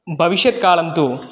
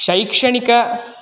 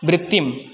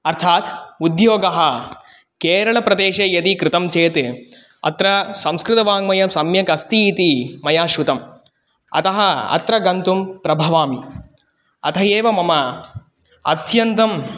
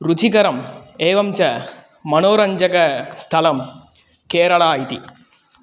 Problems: background sounds at intervals